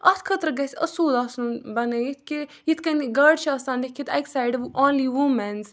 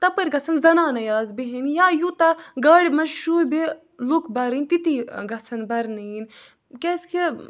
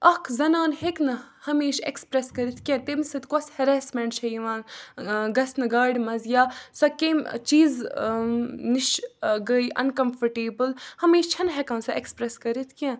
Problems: background sounds at intervals